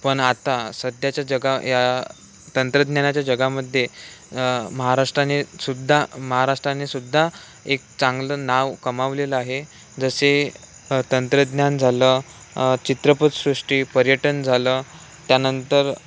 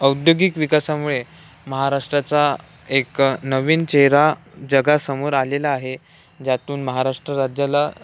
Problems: none marked